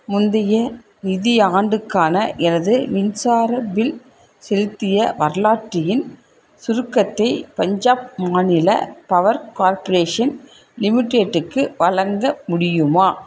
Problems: none marked